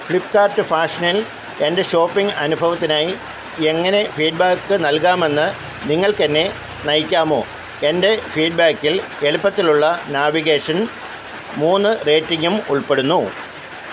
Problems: none marked